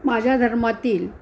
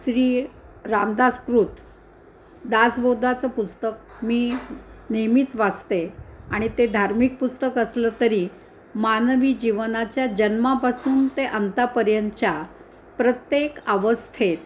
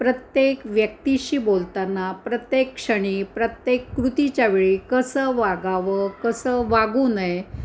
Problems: constant background noise, background conversations at intervals